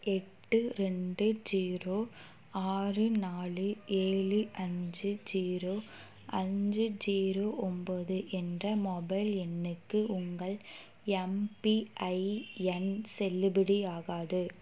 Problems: background sounds at intervals